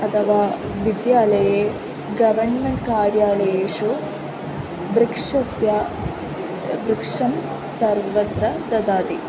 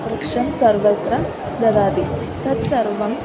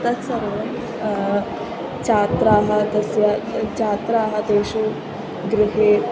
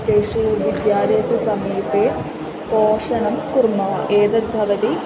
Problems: constant background noise, continuous background conversations